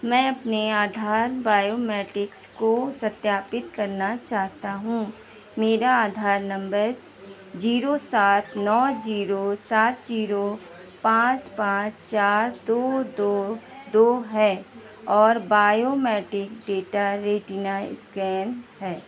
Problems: none marked